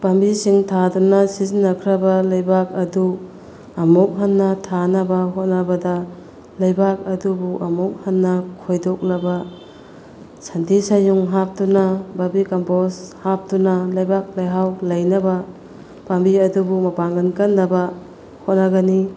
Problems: constant background noise